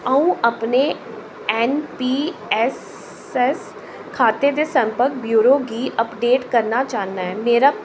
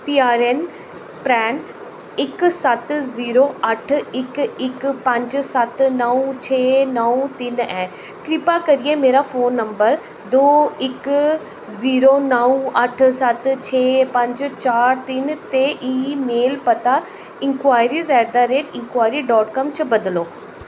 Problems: constant background noise, echo